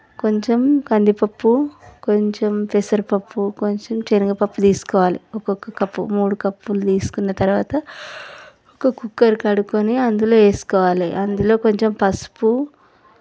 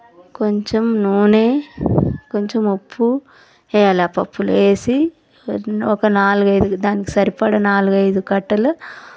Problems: none marked